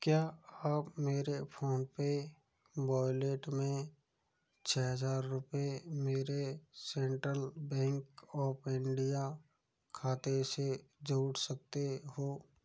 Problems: low volume